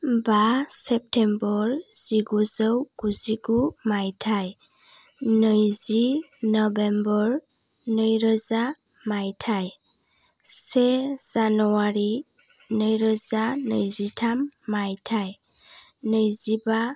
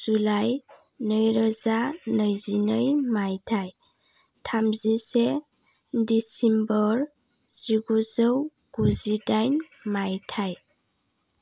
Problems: low volume